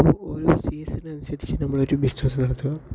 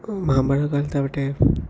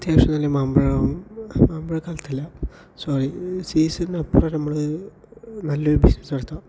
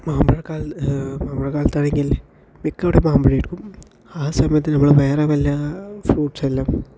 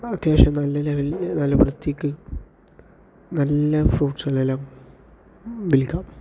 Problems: low volume